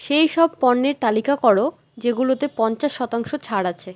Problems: constant background noise